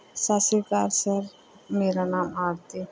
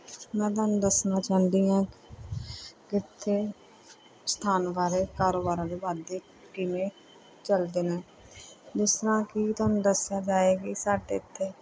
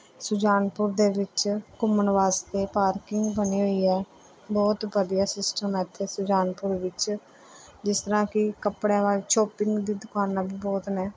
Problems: background conversations at intervals